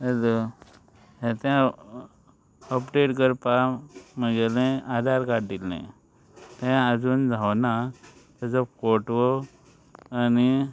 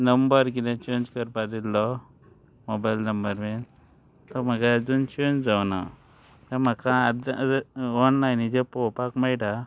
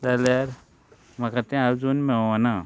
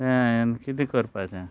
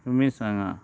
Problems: constant background noise